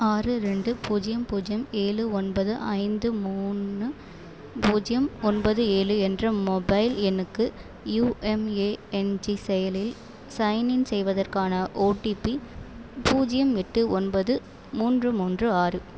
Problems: background sounds at intervals